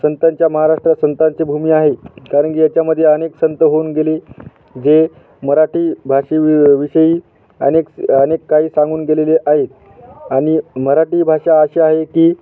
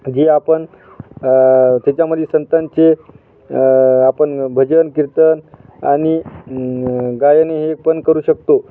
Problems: constant background noise